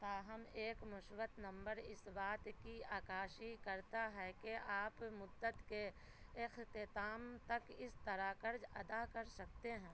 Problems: constant background noise